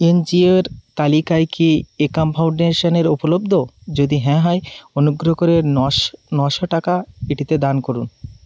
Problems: constant background noise